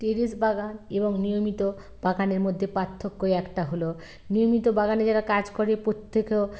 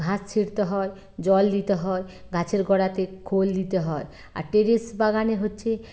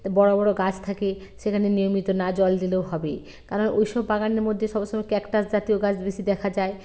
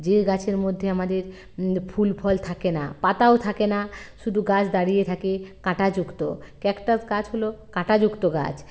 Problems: none marked